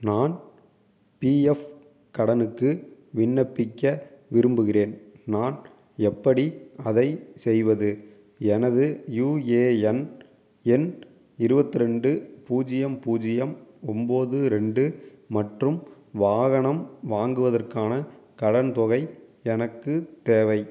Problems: none marked